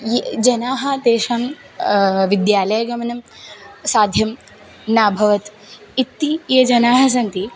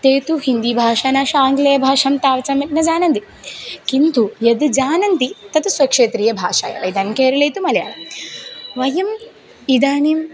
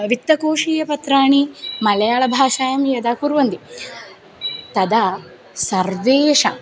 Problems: background sounds at intervals